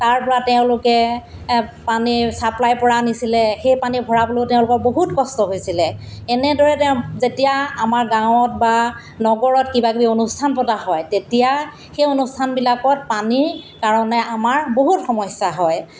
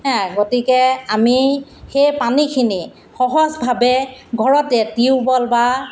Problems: constant background noise